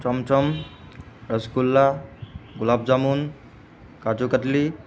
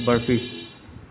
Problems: constant background noise